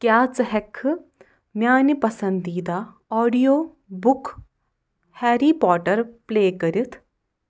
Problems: none marked